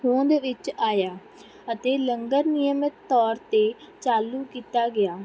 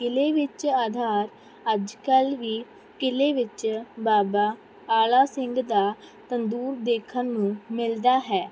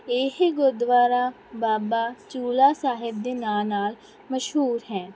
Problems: background sounds at intervals